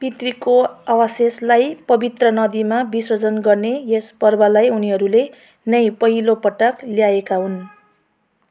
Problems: none marked